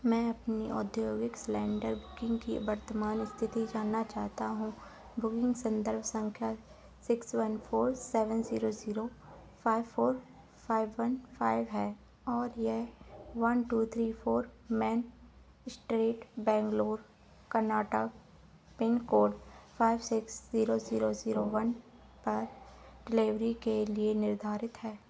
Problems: constant background noise